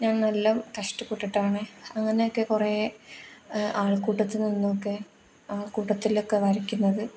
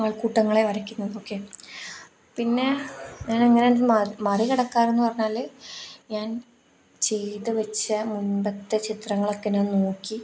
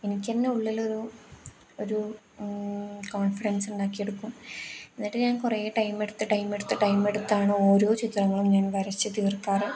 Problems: none marked